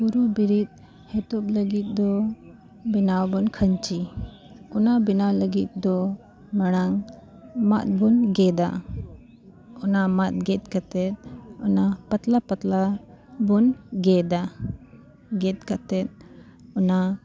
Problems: constant background noise